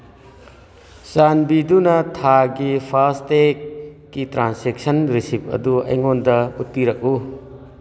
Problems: background sounds at intervals